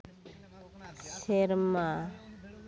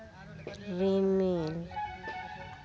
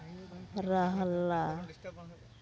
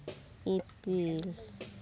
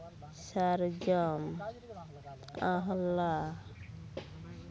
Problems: constant background noise, continuous background conversations